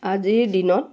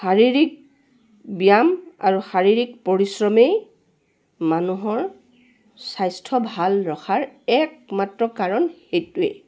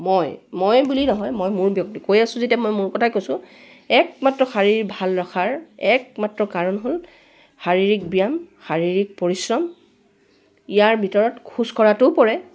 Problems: none marked